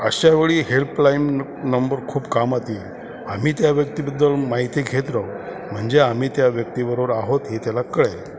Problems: constant background noise